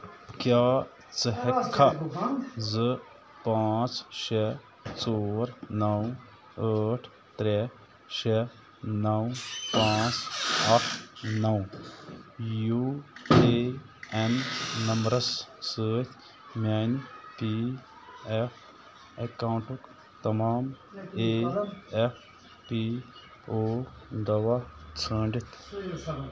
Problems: constant background noise, continuous background conversations